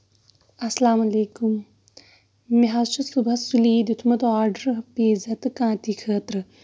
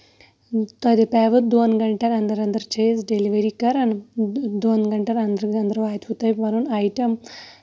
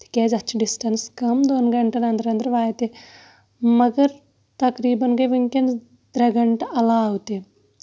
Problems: none marked